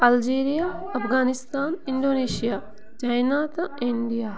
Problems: constant background noise